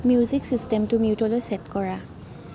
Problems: constant background noise